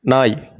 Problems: none marked